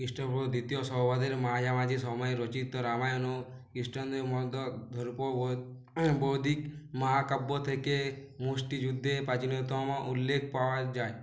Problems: background sounds at intervals